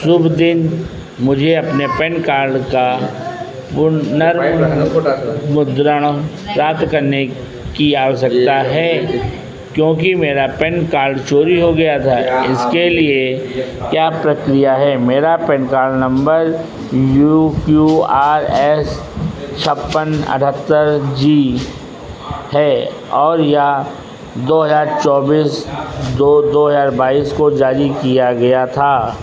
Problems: constant background noise